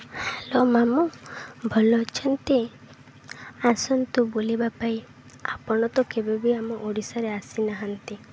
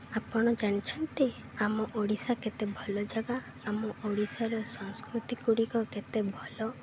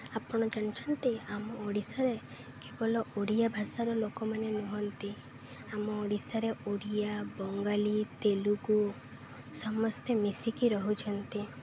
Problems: none marked